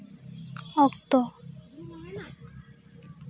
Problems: background conversations at intervals